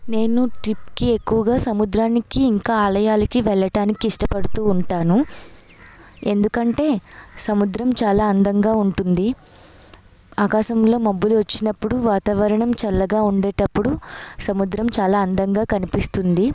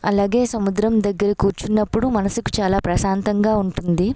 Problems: background sounds at intervals